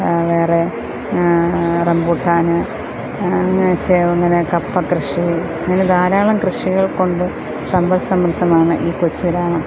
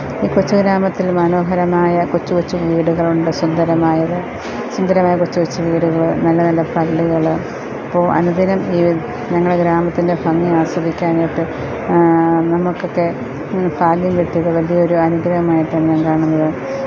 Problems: constant background noise, low volume